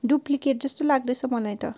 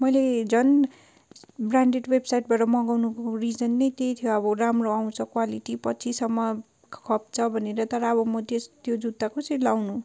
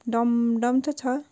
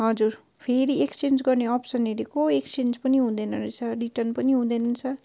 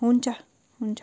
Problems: none marked